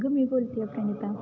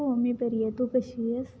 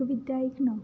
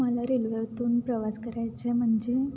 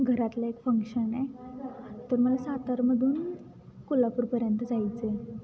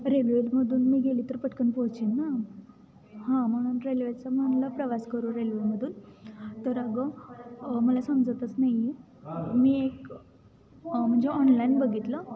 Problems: constant background noise, continuous background conversations